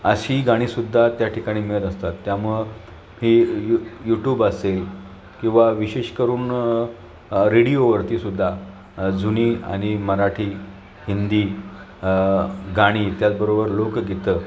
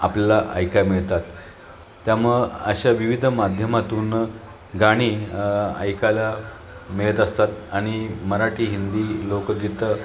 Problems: none marked